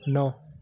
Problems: background sounds at intervals, continuous background conversations